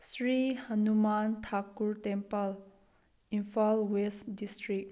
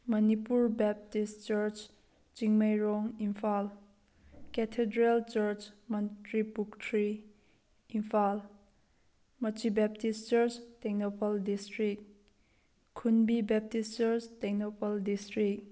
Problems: none marked